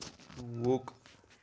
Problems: background sounds at intervals